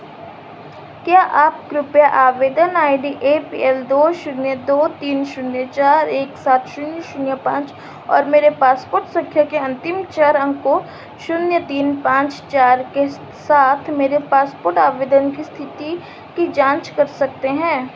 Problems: constant background noise